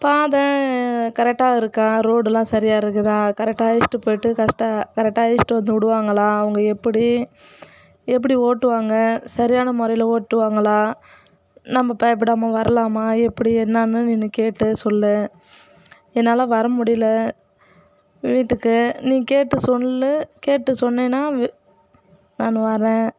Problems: constant background noise